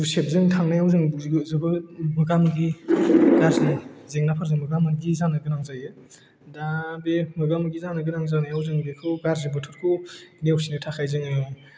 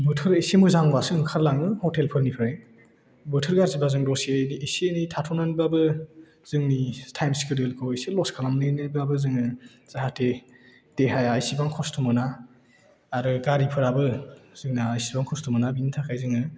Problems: low volume